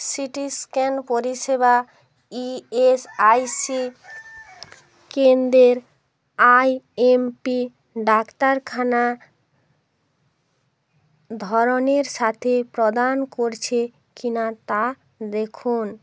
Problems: background sounds at intervals